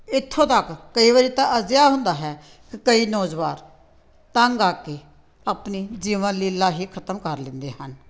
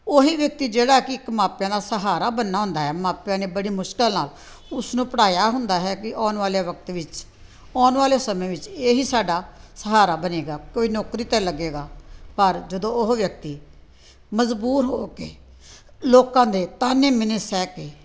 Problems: background sounds at intervals